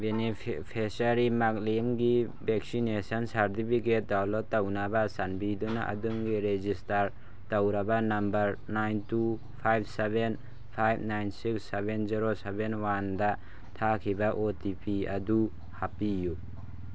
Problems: background sounds at intervals, low volume